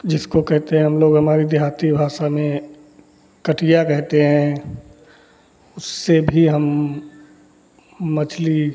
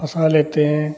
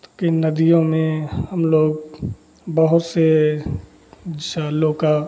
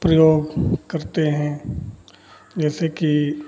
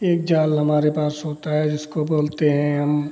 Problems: constant background noise, background conversations at intervals